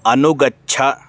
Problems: constant background noise